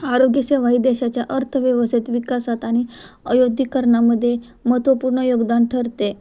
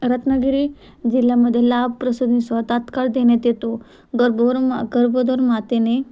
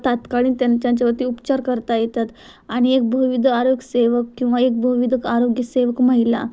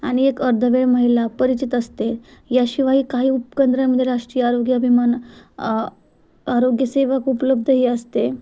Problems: constant background noise, background conversations at intervals